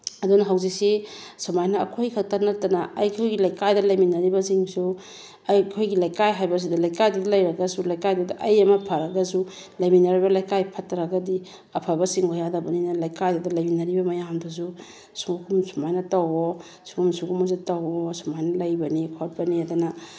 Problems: background sounds at intervals